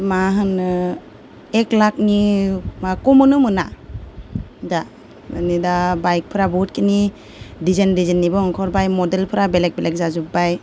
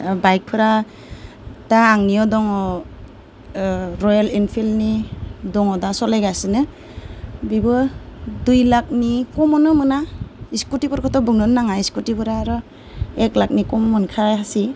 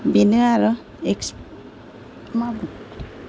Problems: none marked